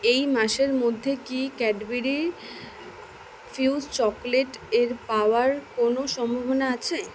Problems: none marked